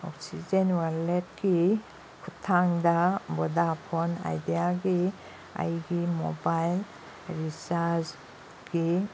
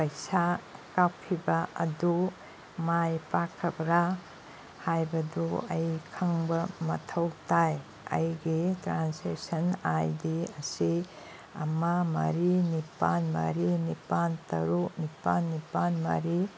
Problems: background sounds at intervals